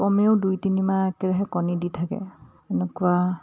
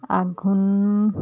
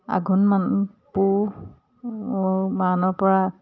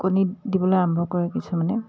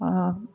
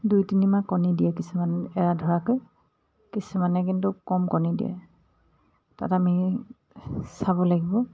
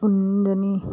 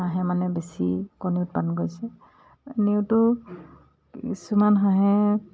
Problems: none marked